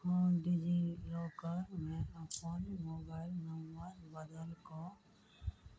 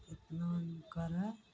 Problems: low volume